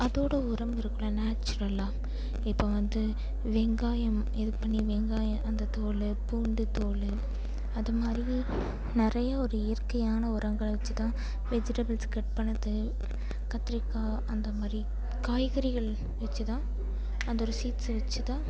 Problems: constant background noise